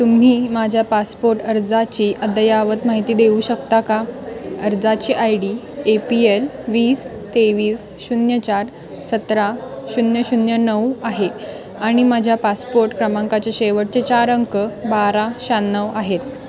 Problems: constant background noise